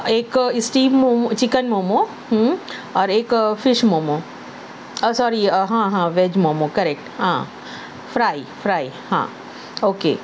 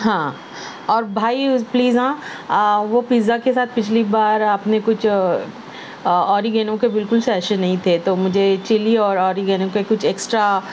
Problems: none marked